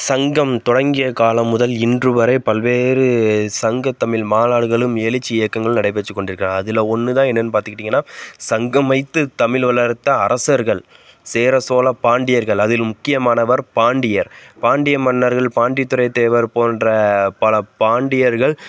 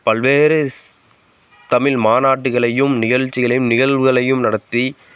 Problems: constant background noise